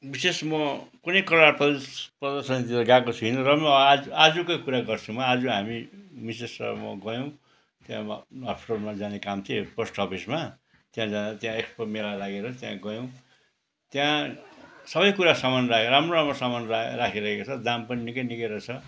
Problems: background sounds at intervals